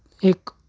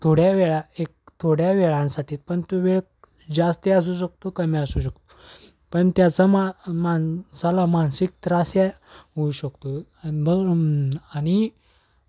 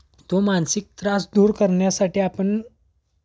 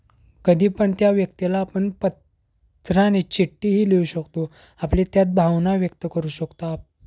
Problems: background sounds at intervals